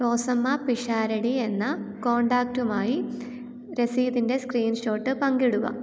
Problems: none marked